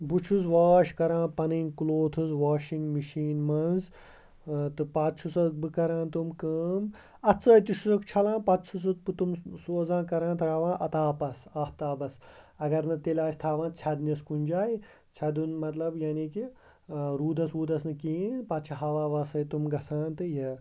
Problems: constant background noise